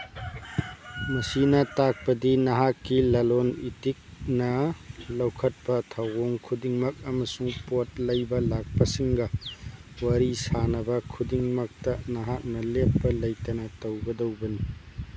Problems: background sounds at intervals